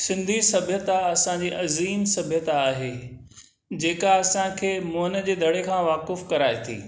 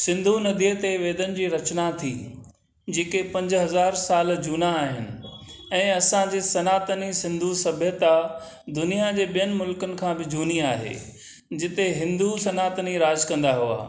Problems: none marked